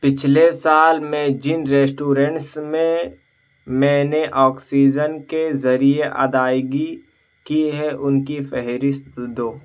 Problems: background sounds at intervals